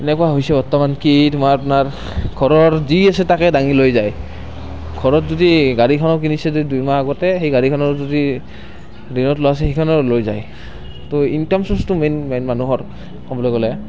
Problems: constant background noise